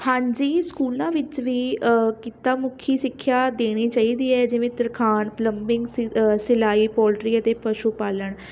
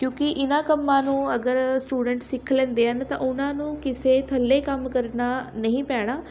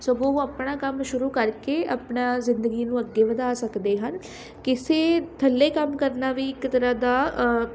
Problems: constant background noise, background conversations at intervals